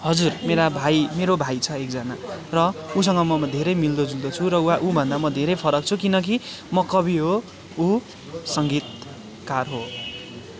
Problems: continuous background conversations